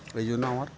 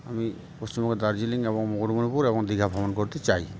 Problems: constant background noise, continuous background conversations